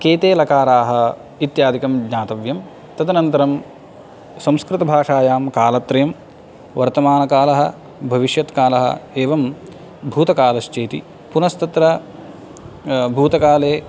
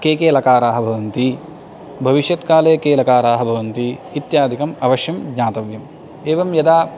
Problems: none marked